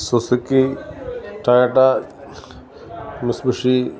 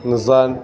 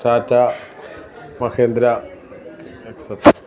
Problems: background sounds at intervals